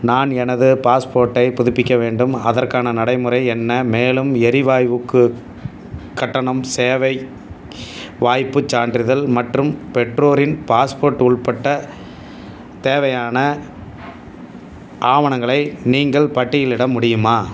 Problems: none marked